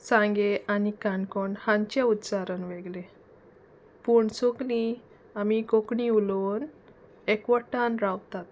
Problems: none marked